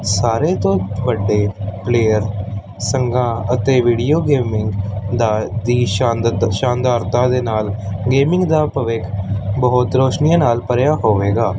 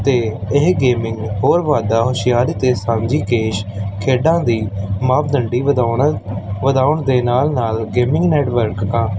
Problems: constant background noise